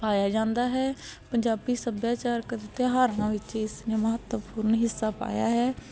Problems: constant background noise